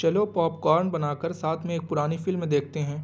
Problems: none marked